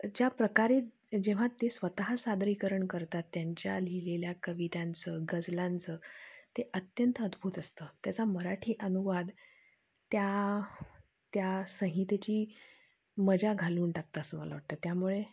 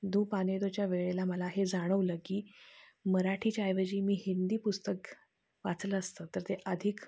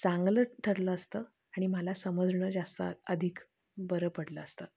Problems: constant background noise, low volume